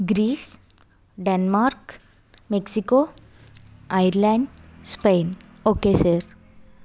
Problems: background sounds at intervals